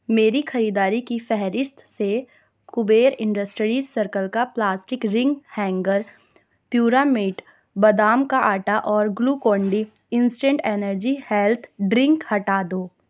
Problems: constant background noise